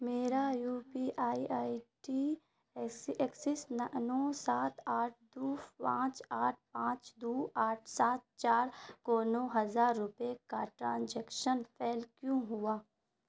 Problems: constant background noise